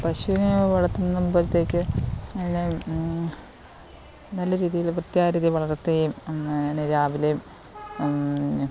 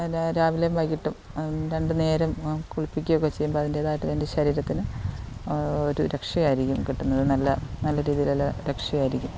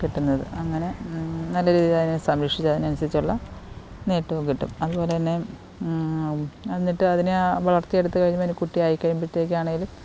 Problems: constant background noise